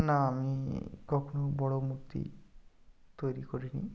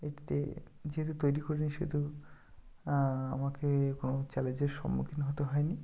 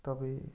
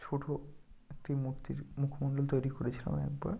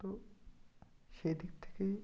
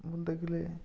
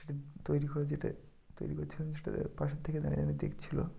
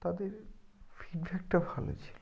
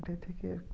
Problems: none marked